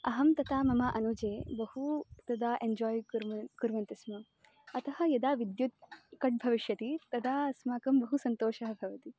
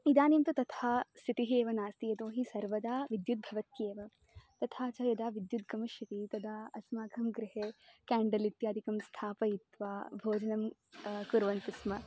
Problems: none marked